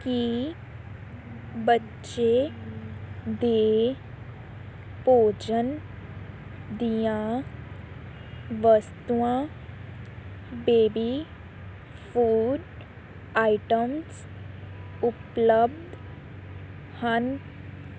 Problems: none marked